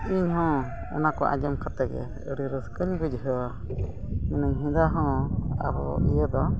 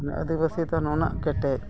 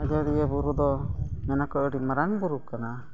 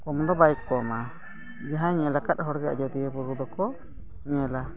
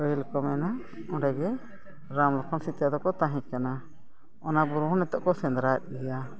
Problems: background sounds at intervals